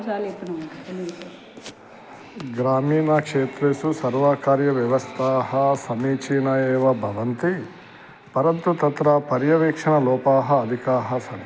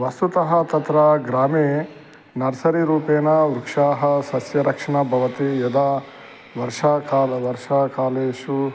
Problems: background sounds at intervals